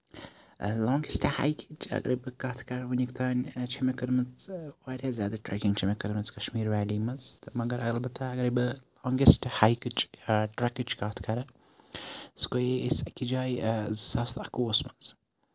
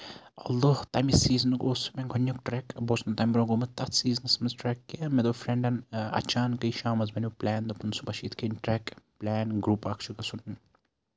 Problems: none marked